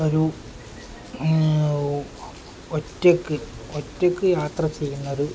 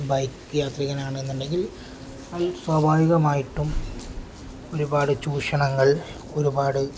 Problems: none marked